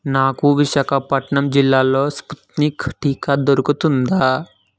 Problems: none marked